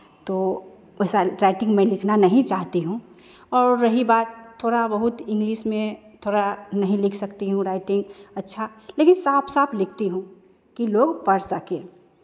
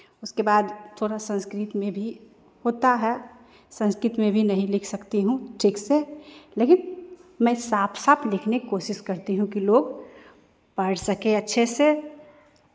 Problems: constant background noise, echo